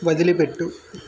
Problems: constant background noise